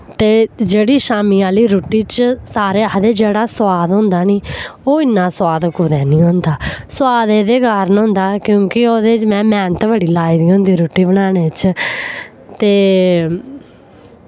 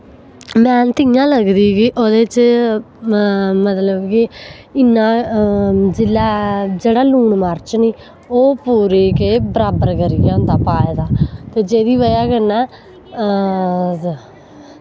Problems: none marked